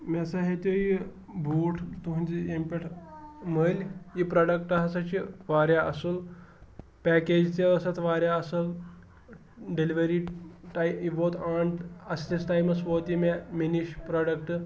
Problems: background sounds at intervals